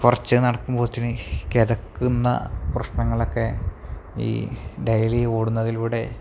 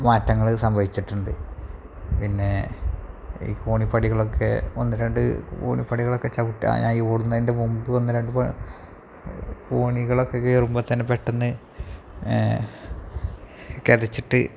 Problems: low volume